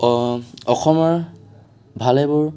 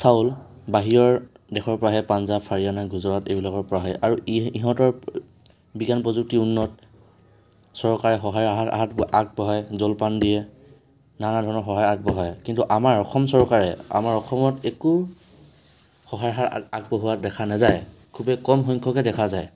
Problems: constant background noise